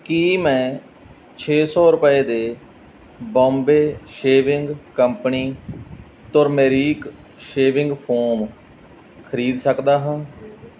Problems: background sounds at intervals